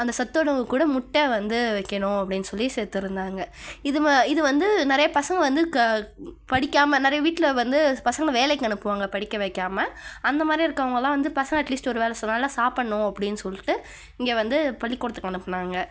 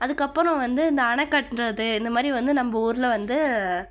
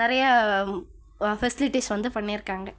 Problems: none marked